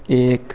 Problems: background sounds at intervals, background conversations at intervals